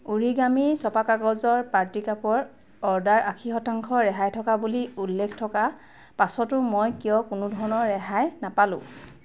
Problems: none marked